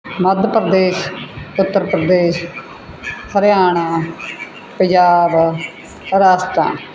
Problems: background sounds at intervals